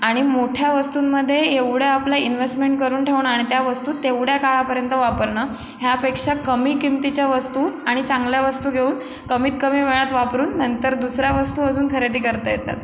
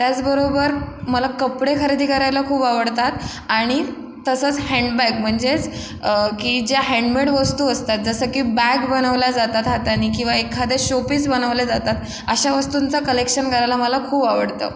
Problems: constant background noise